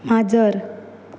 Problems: background sounds at intervals